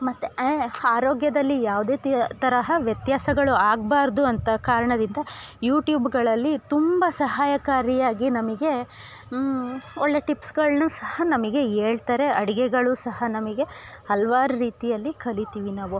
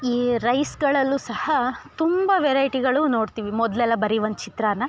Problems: none marked